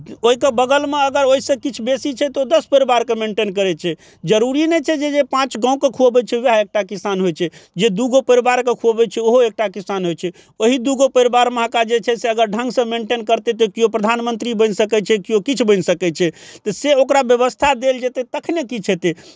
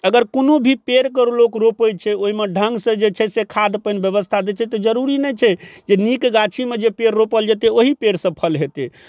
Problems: none marked